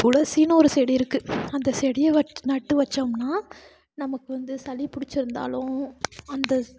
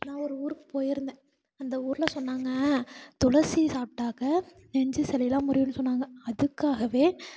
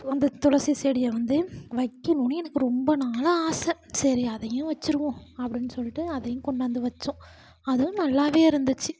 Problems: none marked